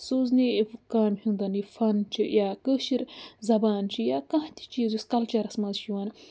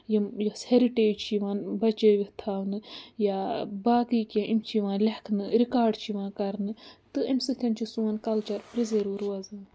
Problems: background sounds at intervals